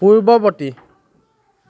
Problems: none marked